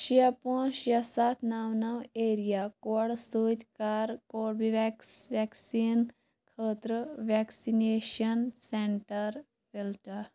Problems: background sounds at intervals